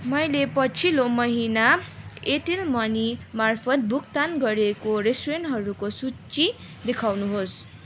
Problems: none marked